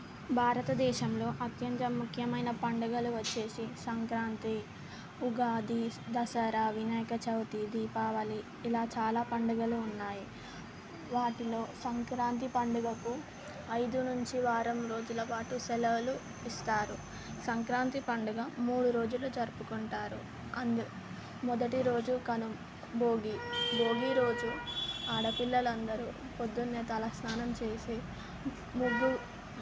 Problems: constant background noise